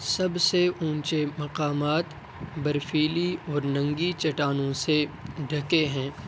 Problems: constant background noise